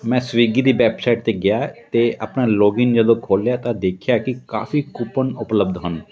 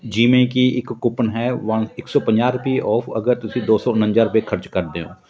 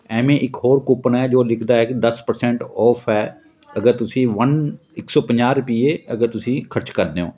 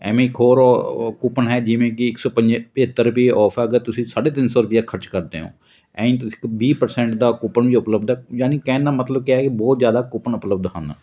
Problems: continuous background conversations